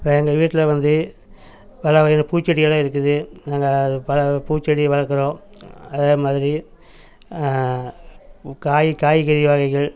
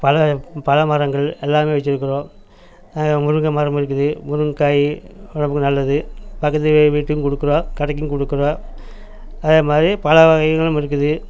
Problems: background sounds at intervals